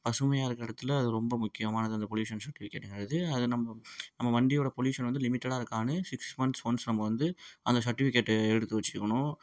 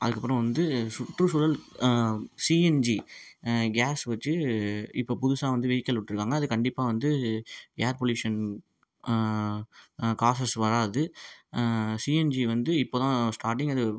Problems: none marked